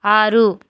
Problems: none marked